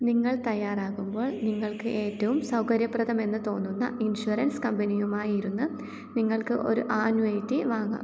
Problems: background sounds at intervals, low volume